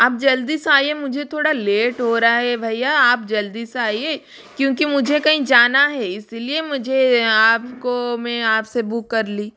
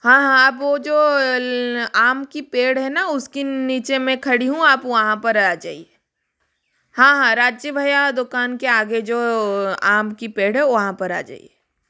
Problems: background sounds at intervals